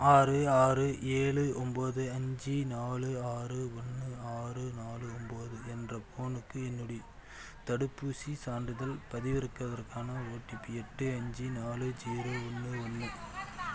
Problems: background conversations at intervals